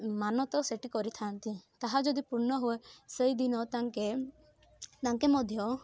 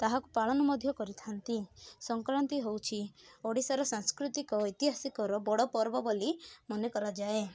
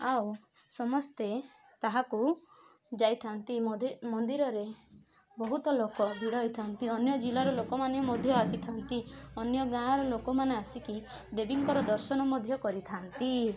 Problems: constant background noise, continuous background conversations